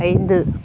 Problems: constant background noise